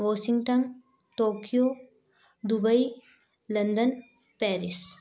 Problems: background sounds at intervals, background conversations at intervals